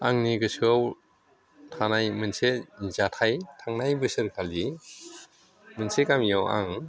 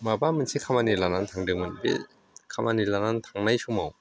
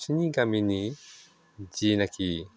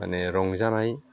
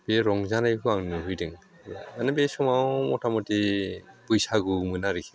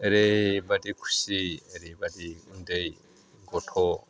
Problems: none marked